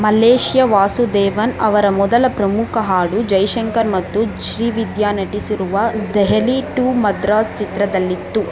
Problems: constant background noise